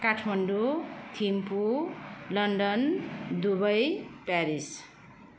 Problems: constant background noise